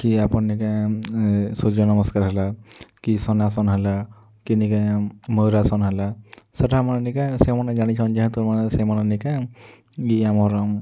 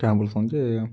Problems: low volume